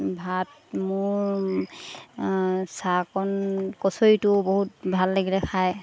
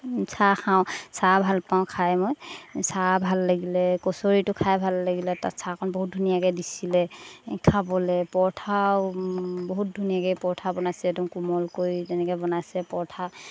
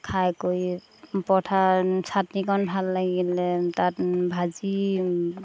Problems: constant background noise